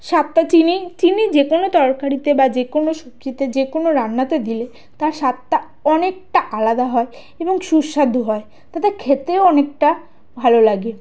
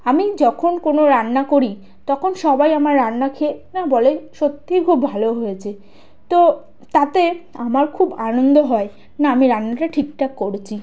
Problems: constant background noise